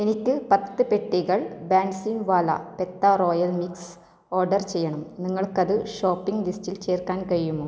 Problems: low volume